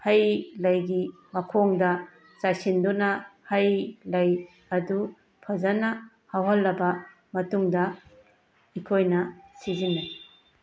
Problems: background sounds at intervals